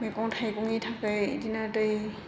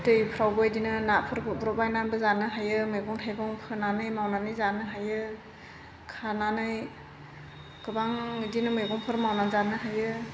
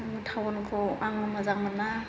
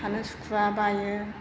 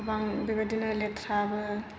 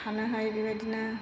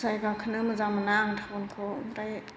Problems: constant background noise